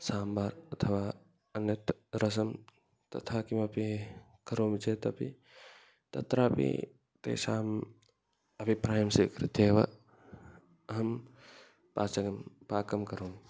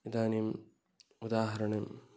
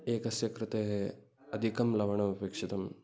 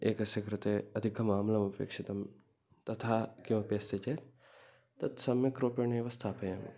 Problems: background conversations at intervals